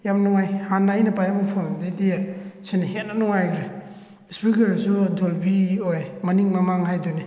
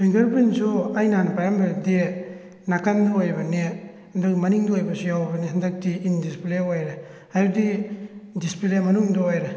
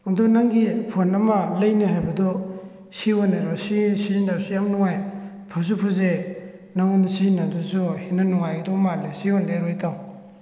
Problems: none marked